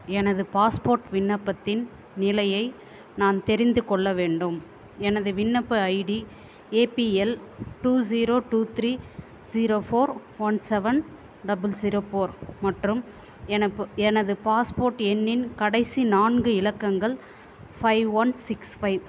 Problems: constant background noise